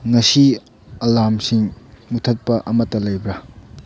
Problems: low volume